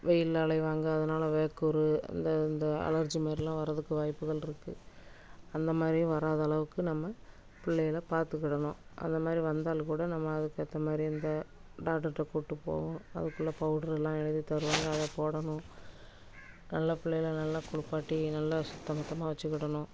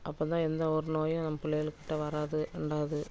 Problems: constant background noise